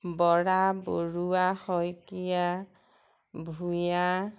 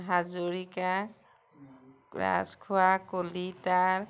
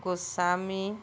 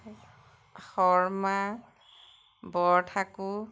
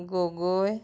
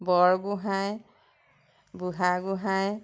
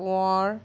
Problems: none marked